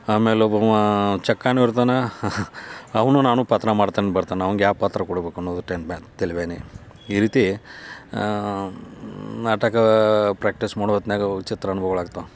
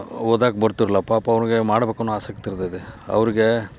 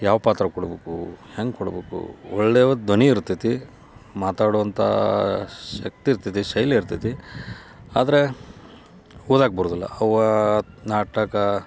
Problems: none marked